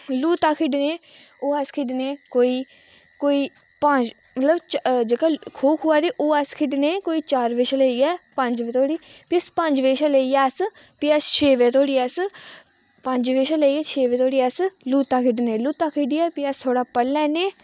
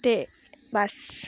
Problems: echo